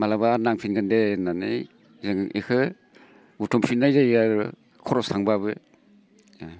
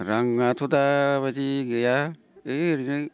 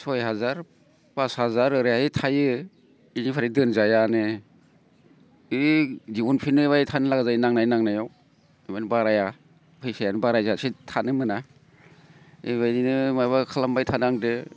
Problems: none marked